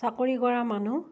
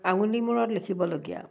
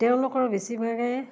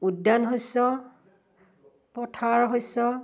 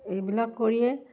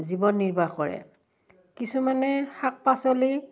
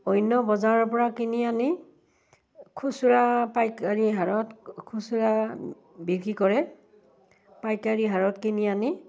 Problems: background sounds at intervals